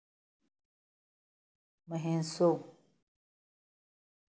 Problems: none marked